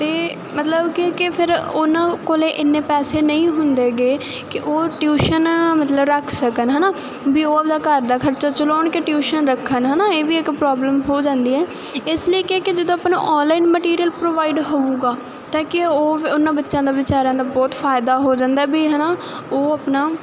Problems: none marked